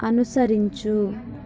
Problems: none marked